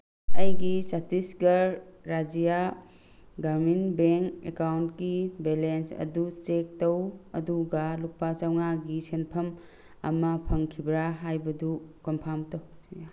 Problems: constant background noise